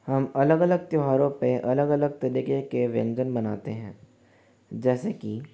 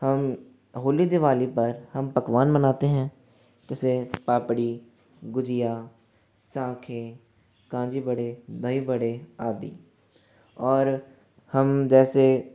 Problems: background sounds at intervals, echo